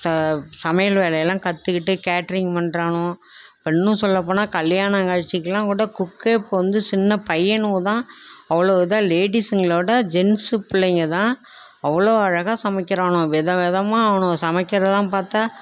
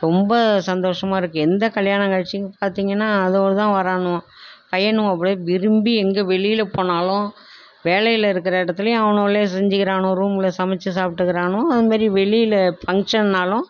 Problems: none marked